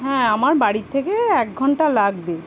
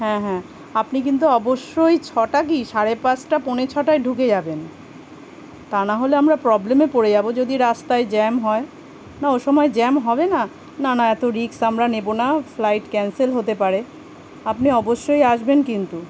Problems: constant background noise